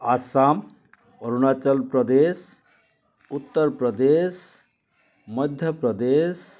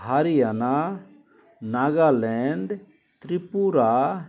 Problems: constant background noise, continuous background conversations